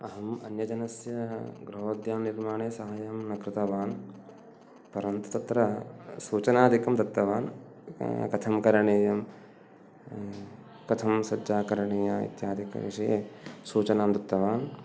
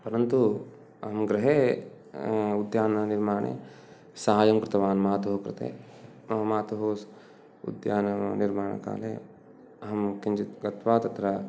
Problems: background sounds at intervals